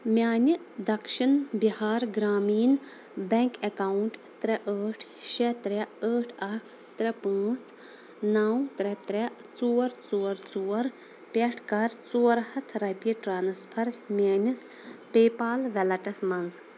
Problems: constant background noise